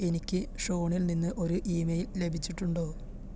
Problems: constant background noise, low volume